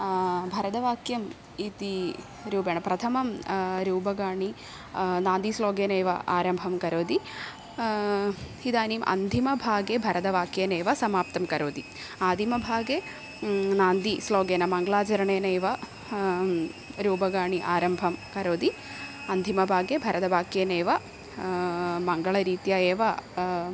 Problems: constant background noise